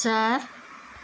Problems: constant background noise